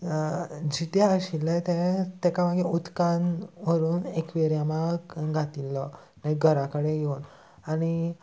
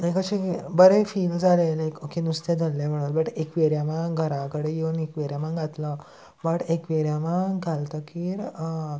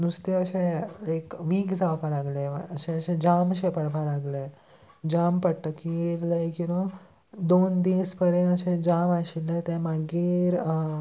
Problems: constant background noise, background conversations at intervals